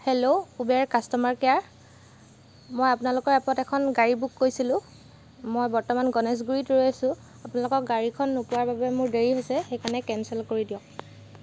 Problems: none marked